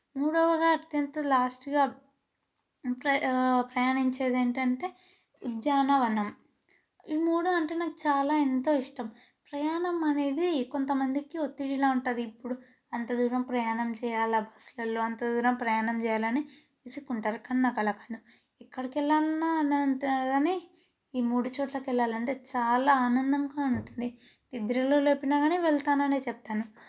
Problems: background sounds at intervals